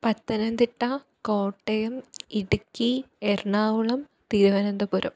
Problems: none marked